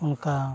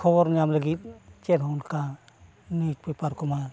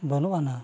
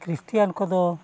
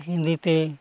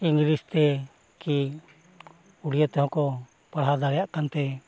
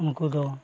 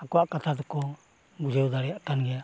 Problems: constant background noise